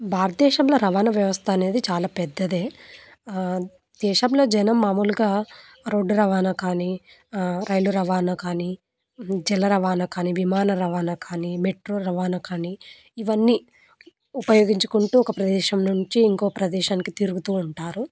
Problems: constant background noise